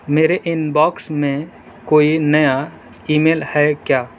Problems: constant background noise